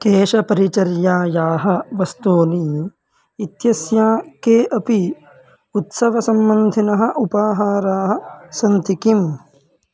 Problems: constant background noise